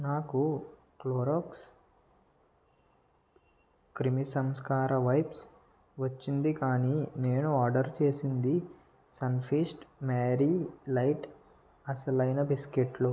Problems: low volume